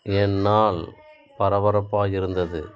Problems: background sounds at intervals